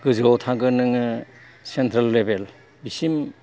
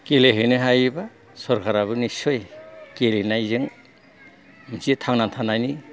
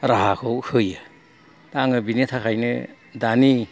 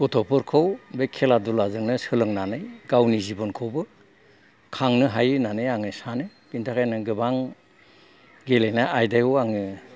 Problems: background sounds at intervals